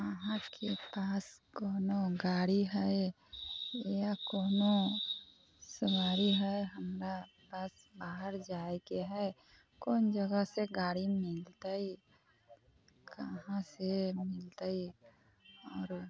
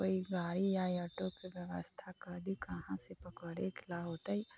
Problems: constant background noise, low volume